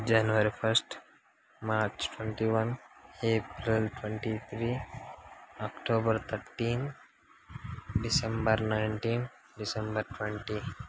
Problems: constant background noise